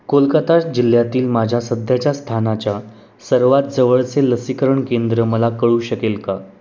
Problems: none marked